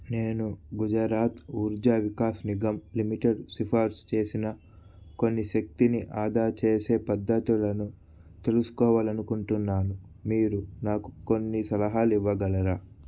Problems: none marked